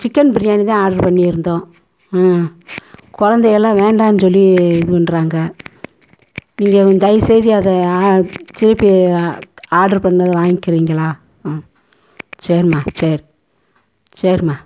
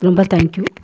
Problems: constant background noise